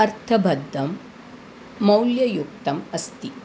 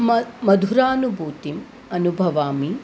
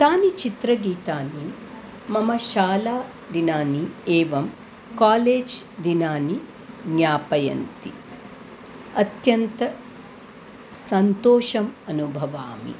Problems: constant background noise